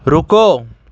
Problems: background sounds at intervals